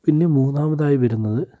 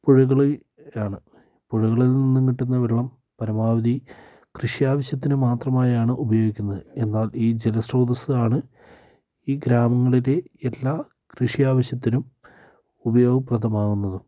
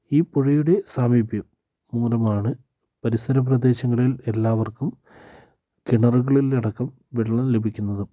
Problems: low volume